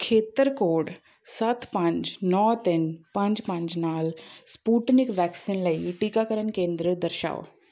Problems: constant background noise